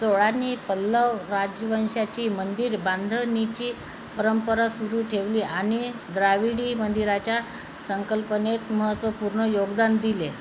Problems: constant background noise, echo